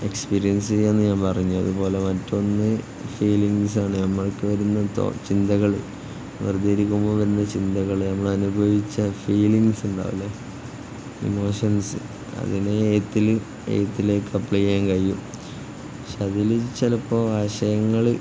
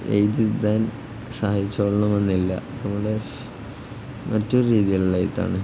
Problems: constant background noise